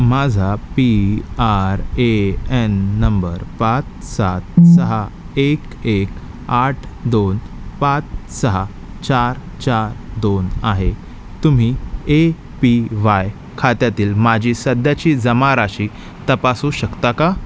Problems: background sounds at intervals